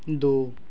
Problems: none marked